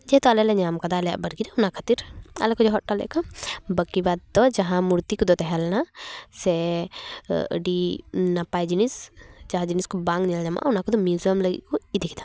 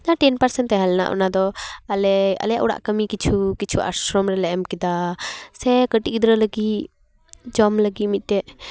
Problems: none marked